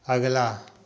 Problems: constant background noise, echo